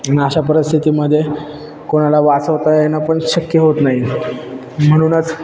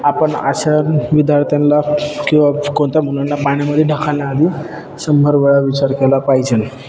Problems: constant background noise, background conversations at intervals